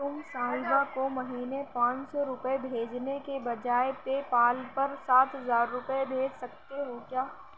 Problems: constant background noise